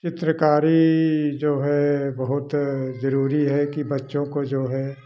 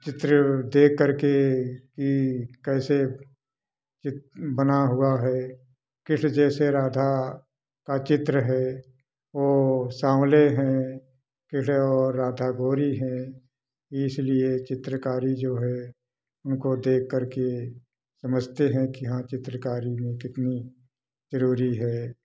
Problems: none marked